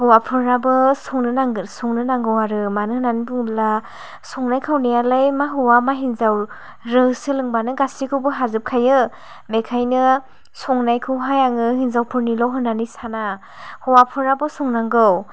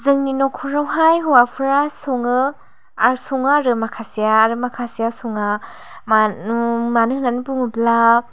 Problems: none marked